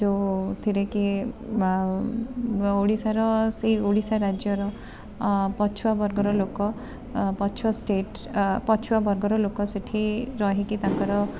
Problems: constant background noise, continuous background conversations